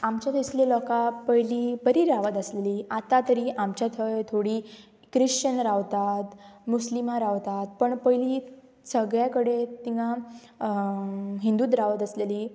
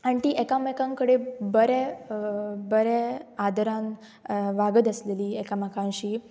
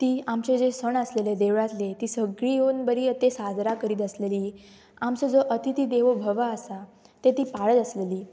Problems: none marked